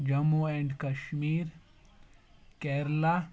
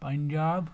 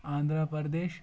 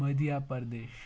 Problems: background sounds at intervals